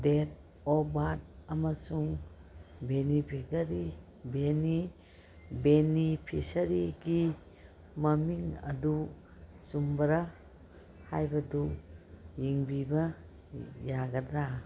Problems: background sounds at intervals